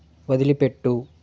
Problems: none marked